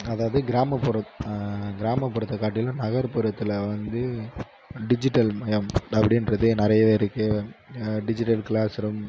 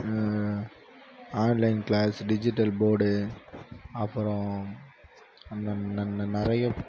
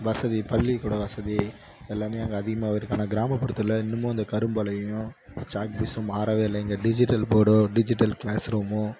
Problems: background sounds at intervals